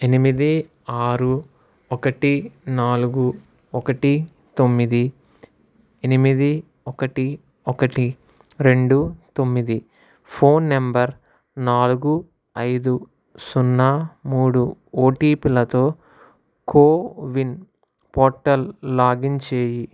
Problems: none marked